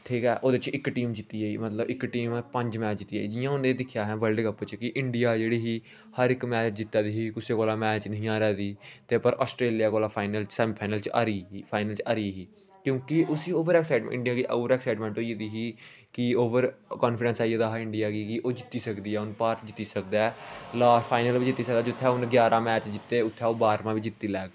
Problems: none marked